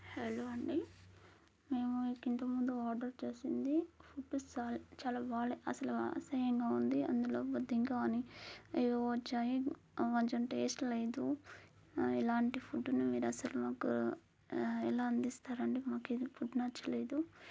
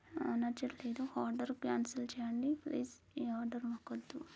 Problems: low volume